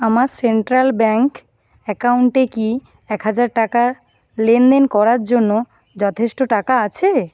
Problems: constant background noise